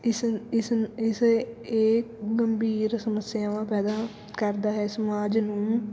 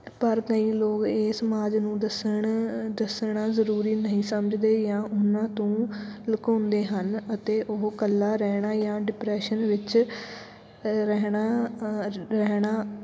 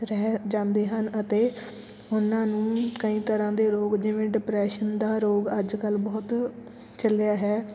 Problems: background sounds at intervals, background conversations at intervals